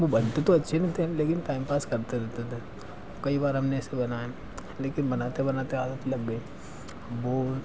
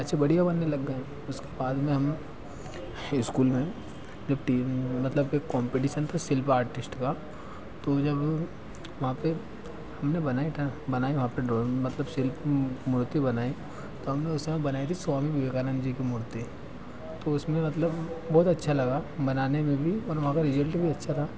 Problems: none marked